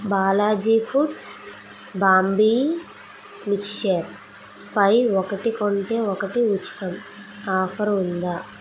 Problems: constant background noise